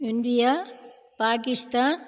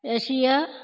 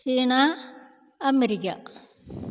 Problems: echo